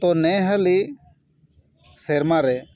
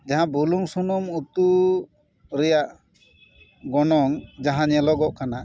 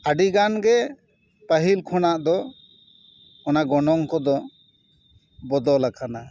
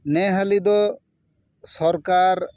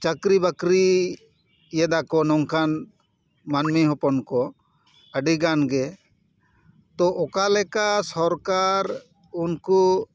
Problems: none marked